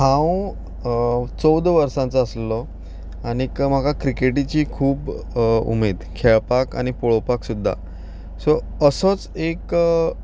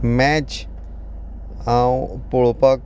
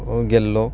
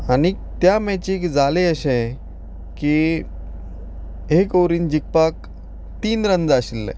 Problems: background sounds at intervals